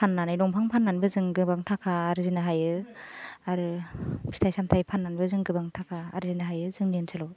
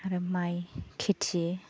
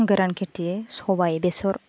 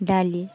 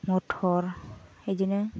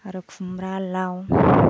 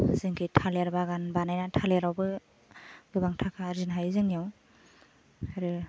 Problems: none marked